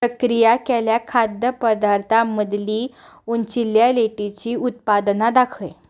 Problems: background sounds at intervals